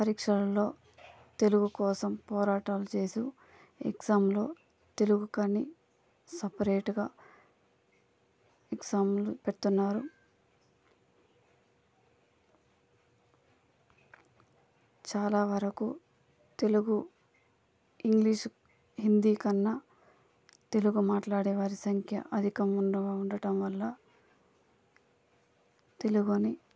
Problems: constant background noise, low volume